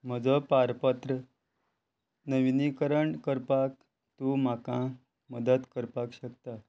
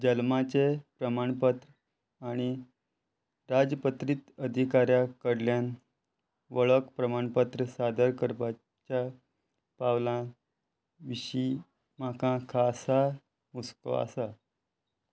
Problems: constant background noise